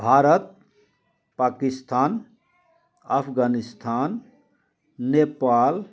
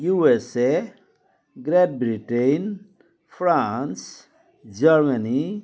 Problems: constant background noise, continuous background conversations